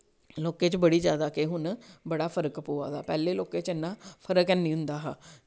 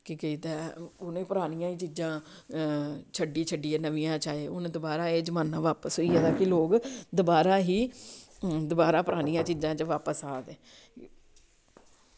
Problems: none marked